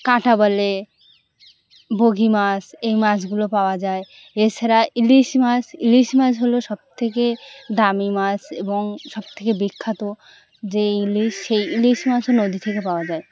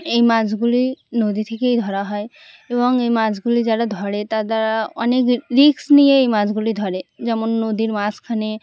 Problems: none marked